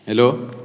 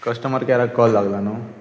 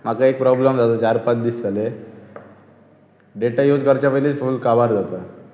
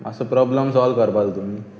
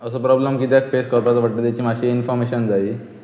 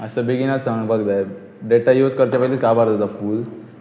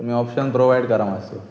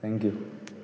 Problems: background sounds at intervals